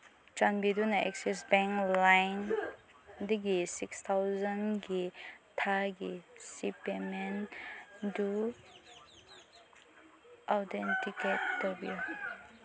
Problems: background sounds at intervals, low volume